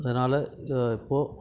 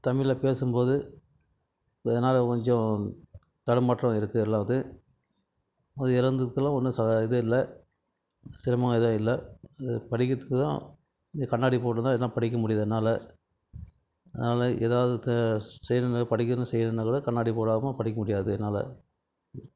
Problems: none marked